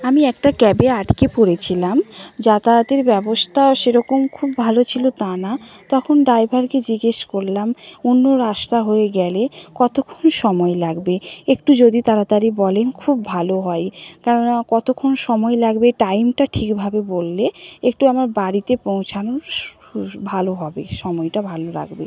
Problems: background sounds at intervals